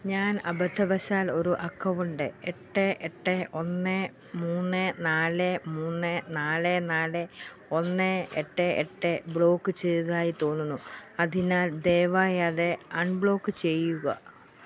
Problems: background sounds at intervals